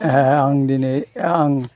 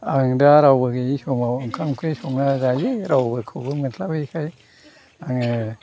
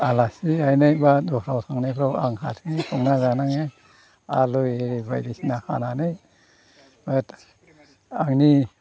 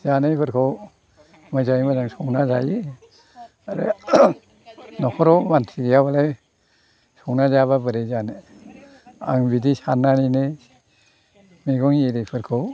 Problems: constant background noise